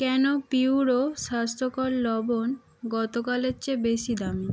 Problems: constant background noise